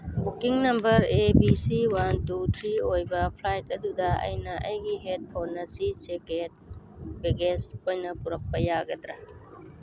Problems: constant background noise